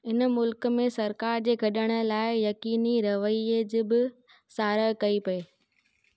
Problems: none marked